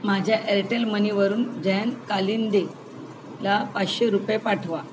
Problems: constant background noise